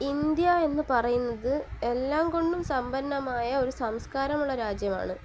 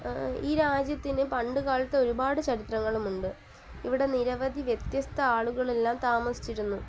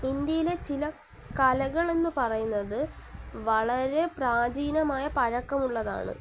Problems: constant background noise, low volume